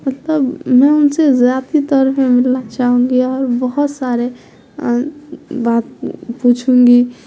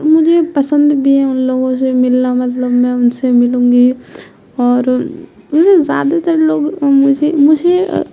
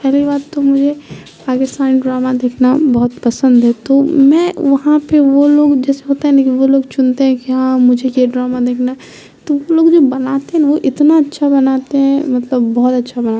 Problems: background sounds at intervals